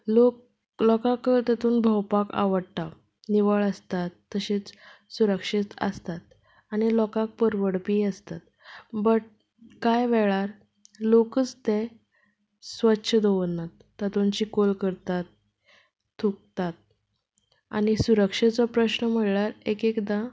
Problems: none marked